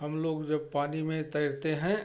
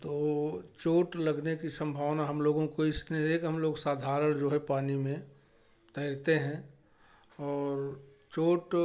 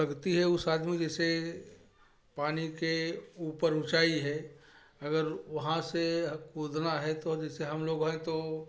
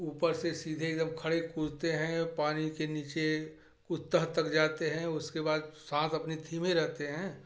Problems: none marked